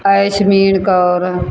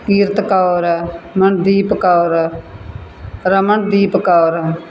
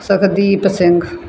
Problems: background sounds at intervals